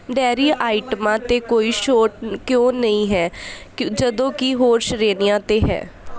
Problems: continuous background conversations